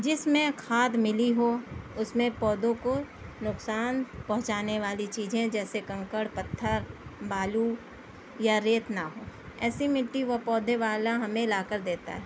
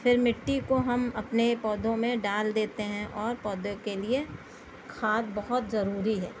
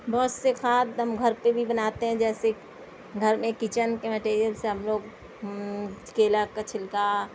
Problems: constant background noise